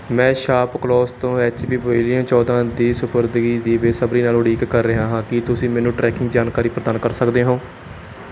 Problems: none marked